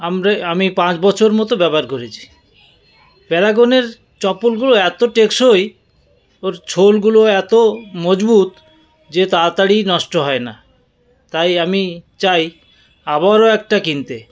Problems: none marked